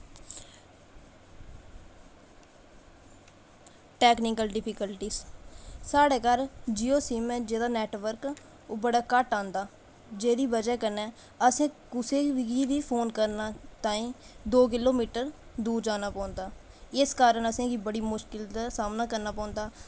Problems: constant background noise